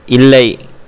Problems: none marked